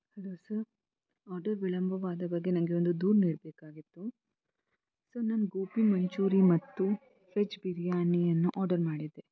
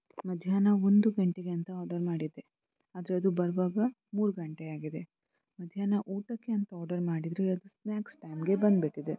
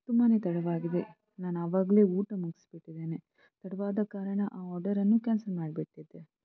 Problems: low volume